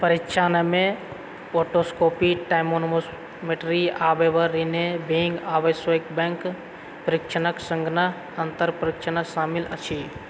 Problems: background sounds at intervals